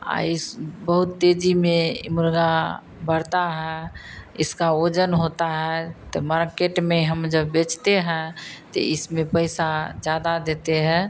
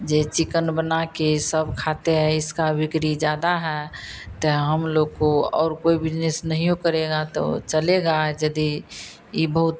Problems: none marked